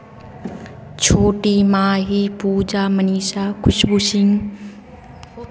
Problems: none marked